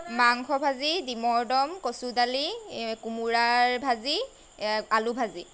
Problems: background sounds at intervals